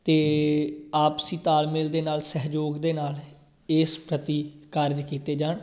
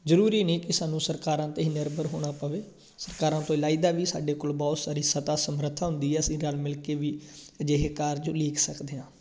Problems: background sounds at intervals